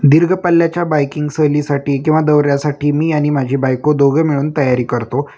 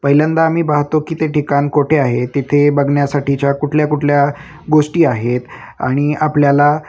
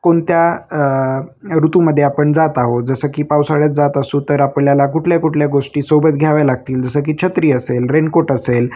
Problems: constant background noise, continuous background conversations